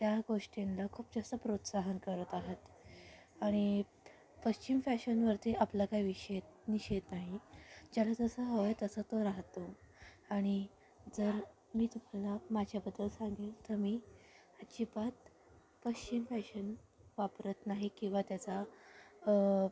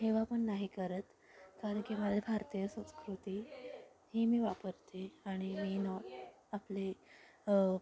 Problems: background sounds at intervals, background conversations at intervals, low volume